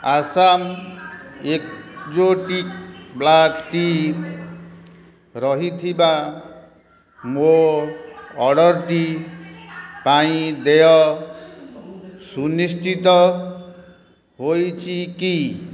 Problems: constant background noise